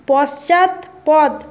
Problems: constant background noise